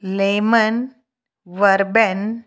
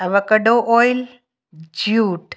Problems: none marked